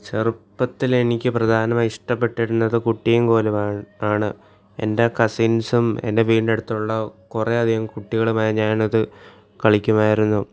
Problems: none marked